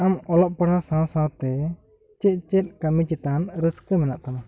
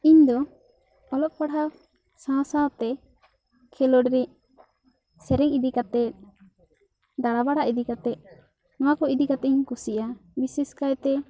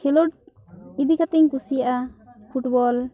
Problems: continuous background conversations